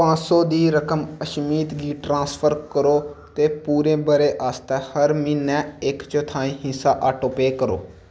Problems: background sounds at intervals, echo